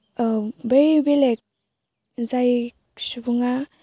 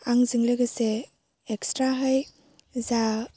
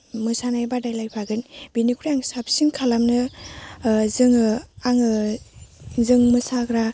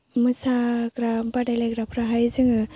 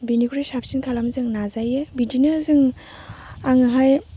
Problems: none marked